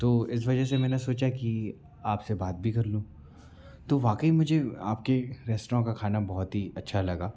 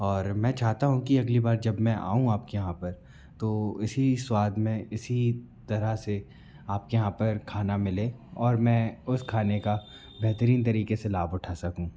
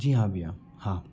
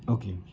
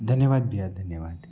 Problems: background sounds at intervals